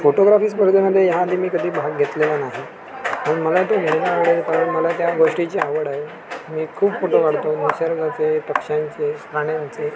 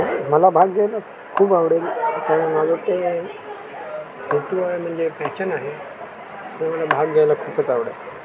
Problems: constant background noise, continuous background conversations